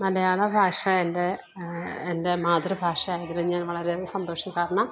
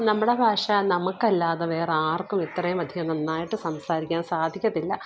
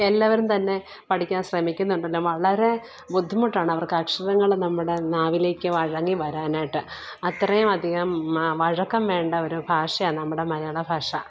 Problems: background sounds at intervals